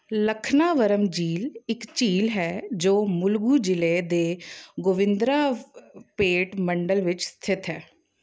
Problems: background sounds at intervals